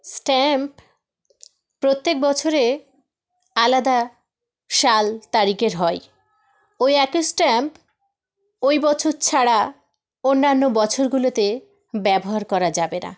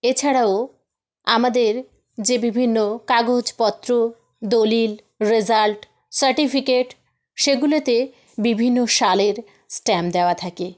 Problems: background sounds at intervals